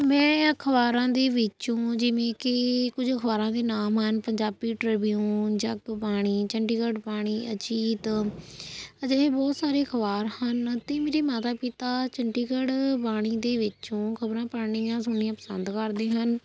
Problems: constant background noise